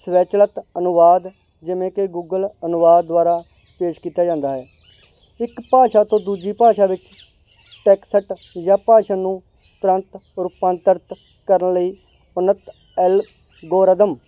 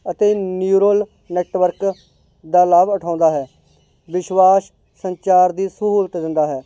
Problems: none marked